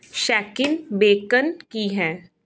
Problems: none marked